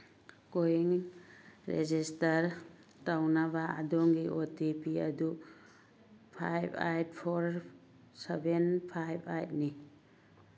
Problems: background sounds at intervals